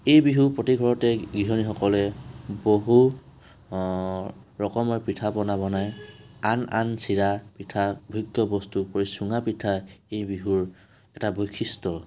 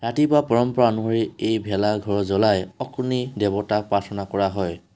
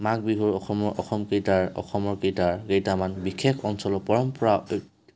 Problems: background sounds at intervals